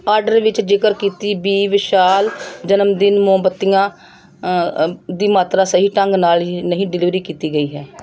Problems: background sounds at intervals